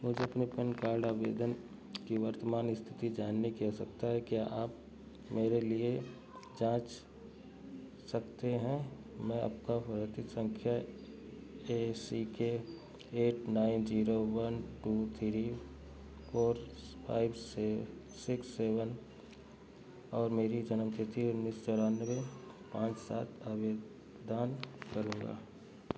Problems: background sounds at intervals, low volume